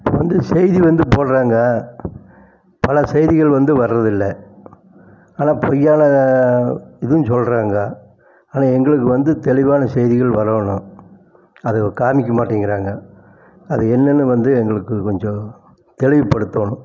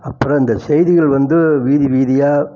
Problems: constant background noise